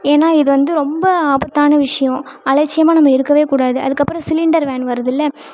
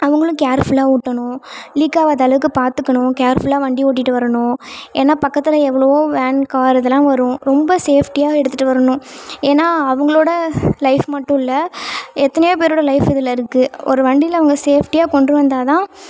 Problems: none marked